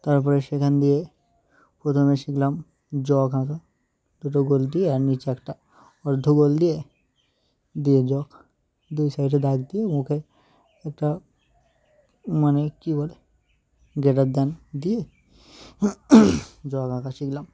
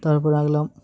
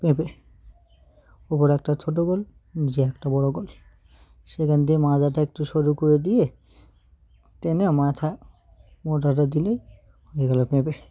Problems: background sounds at intervals, background conversations at intervals